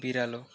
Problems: constant background noise